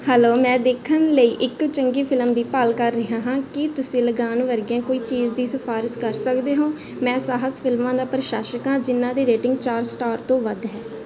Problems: constant background noise